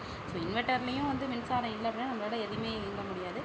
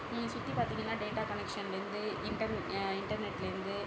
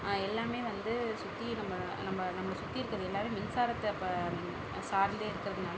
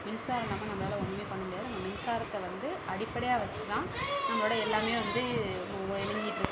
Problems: background conversations at intervals